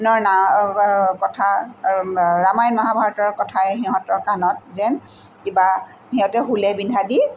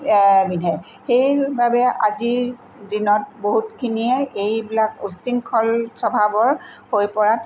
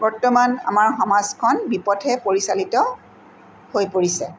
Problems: background sounds at intervals